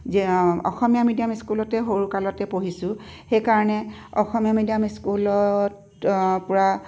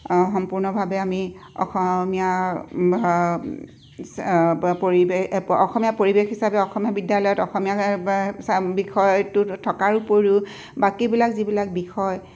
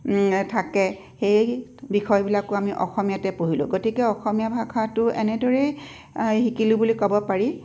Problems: none marked